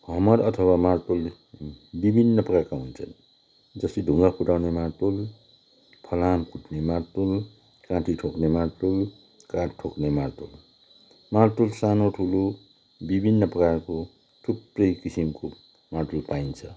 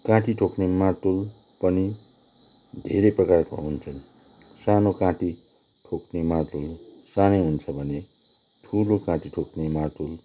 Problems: constant background noise